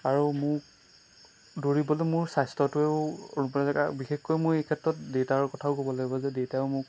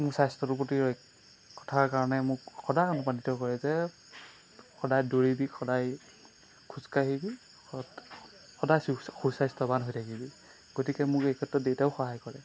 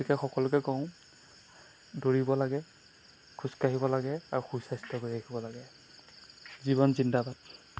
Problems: constant background noise